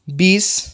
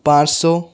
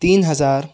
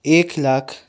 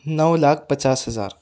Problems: background sounds at intervals